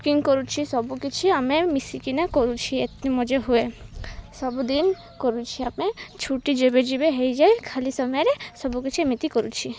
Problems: none marked